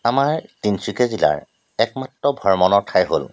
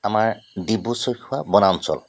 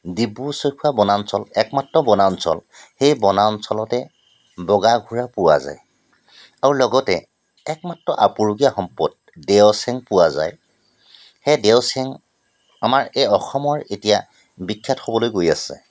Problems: constant background noise